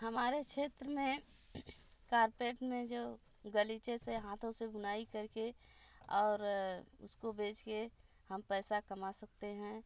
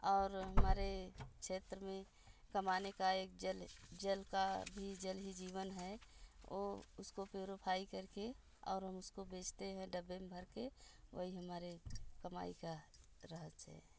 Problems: constant background noise